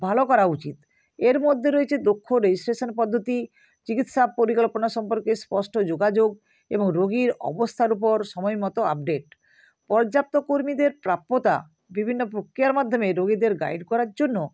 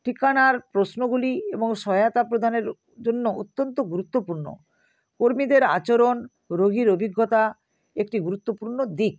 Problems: constant background noise